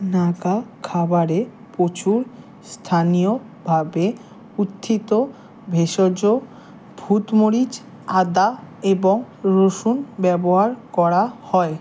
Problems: constant background noise